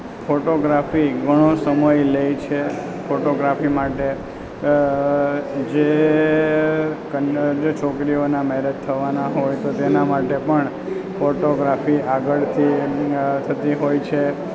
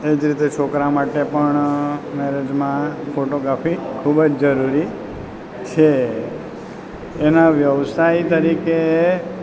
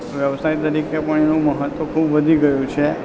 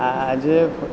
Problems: constant background noise